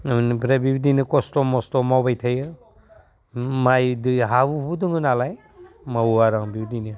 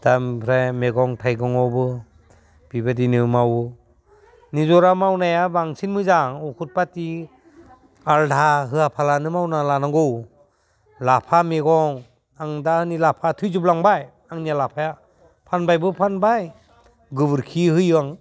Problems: low volume